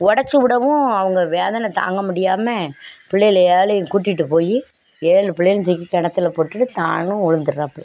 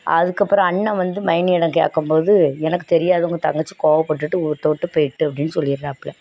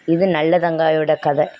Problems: none marked